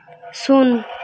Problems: constant background noise